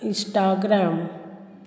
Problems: constant background noise